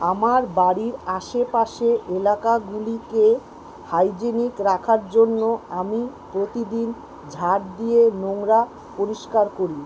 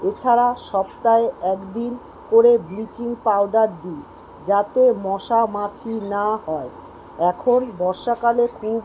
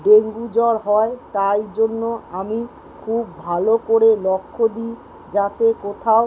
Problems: background sounds at intervals